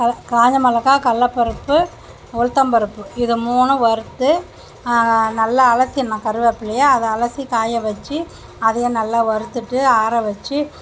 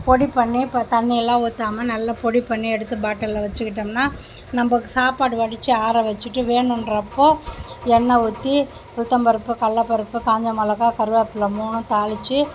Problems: constant background noise